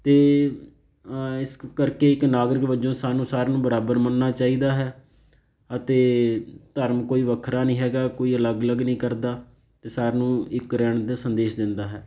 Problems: background sounds at intervals